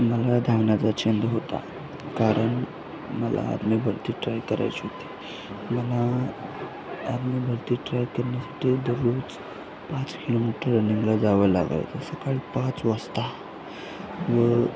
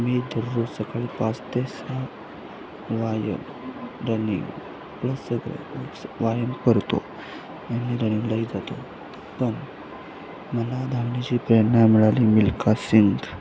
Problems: constant background noise